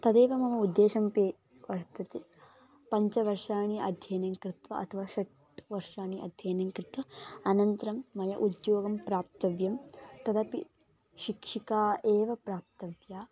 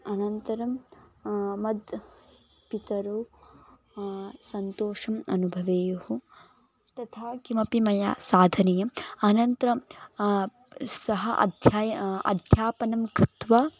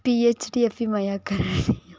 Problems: background conversations at intervals